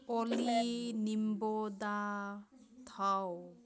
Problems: background sounds at intervals, background conversations at intervals